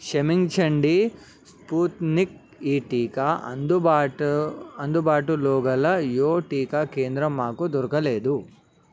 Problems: constant background noise